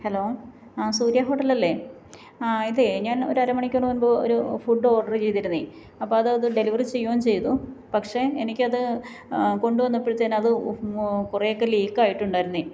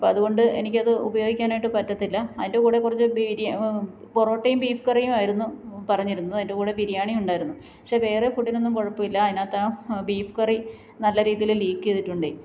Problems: background sounds at intervals